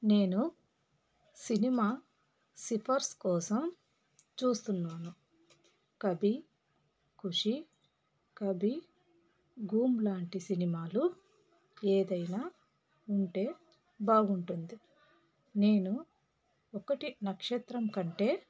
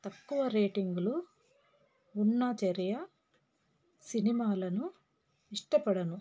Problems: none marked